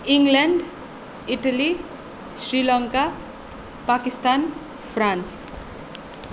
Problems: constant background noise